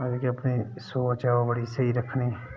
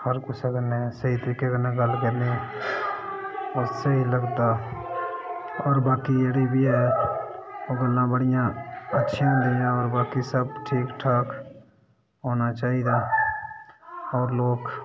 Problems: background sounds at intervals